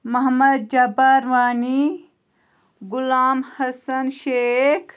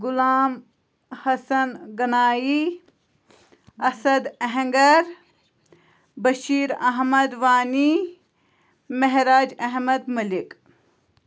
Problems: constant background noise